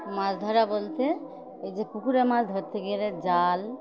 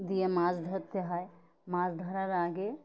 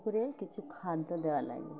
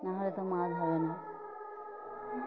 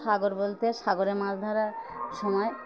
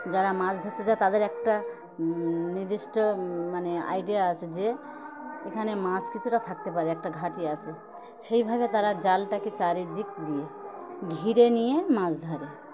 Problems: constant background noise, continuous background conversations